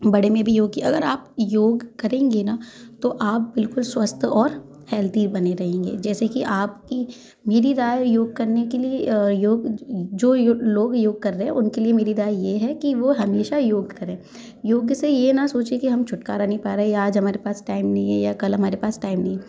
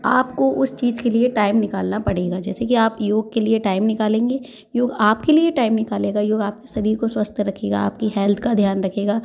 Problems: constant background noise, continuous background conversations